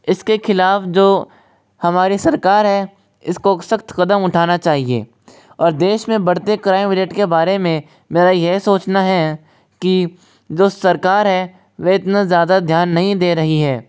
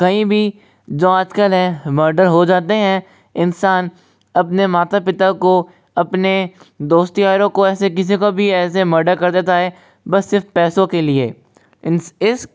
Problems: constant background noise, echo